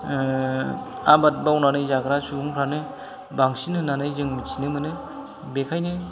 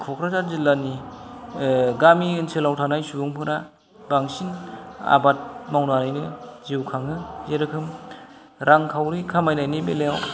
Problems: none marked